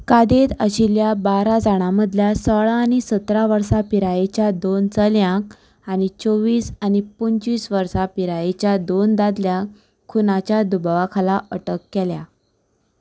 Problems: constant background noise